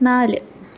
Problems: constant background noise